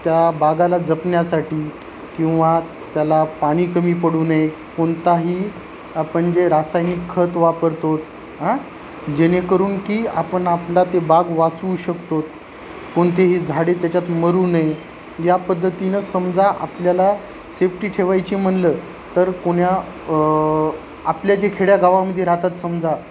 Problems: constant background noise